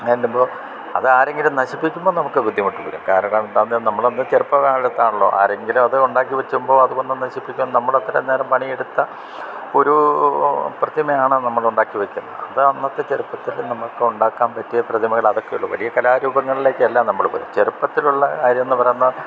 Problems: background sounds at intervals